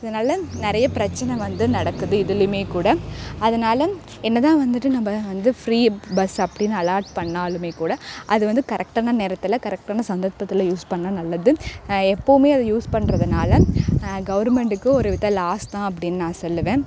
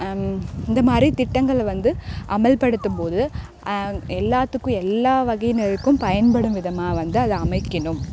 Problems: constant background noise